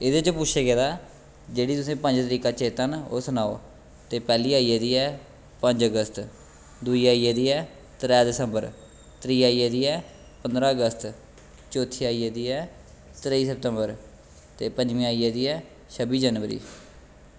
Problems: constant background noise